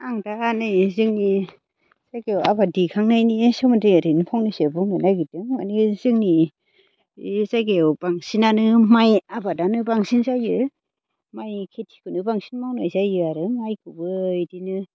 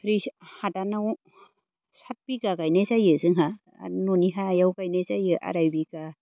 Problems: none marked